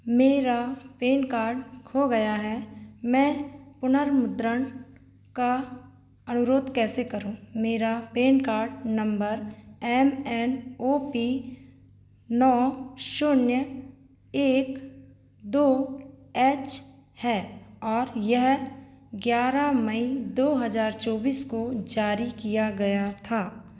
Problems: background conversations at intervals